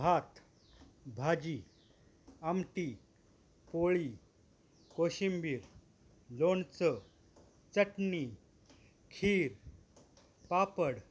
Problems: background sounds at intervals